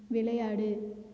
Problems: low volume